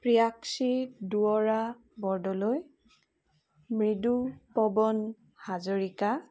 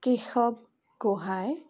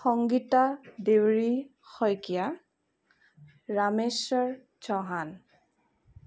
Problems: none marked